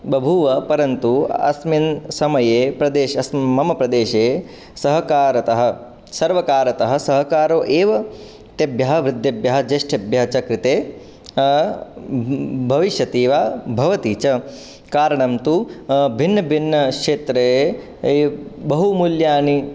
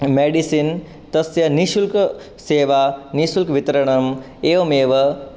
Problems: none marked